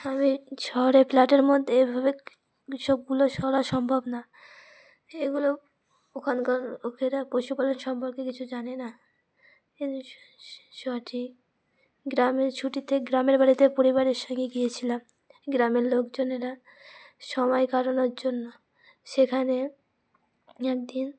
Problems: none marked